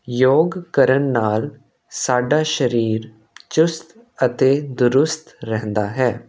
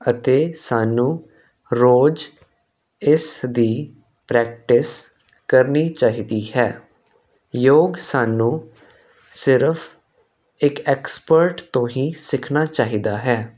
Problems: constant background noise